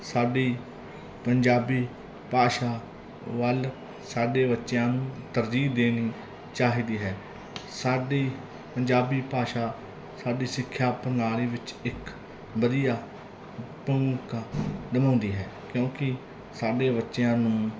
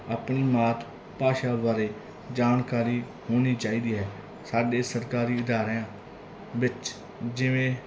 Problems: background conversations at intervals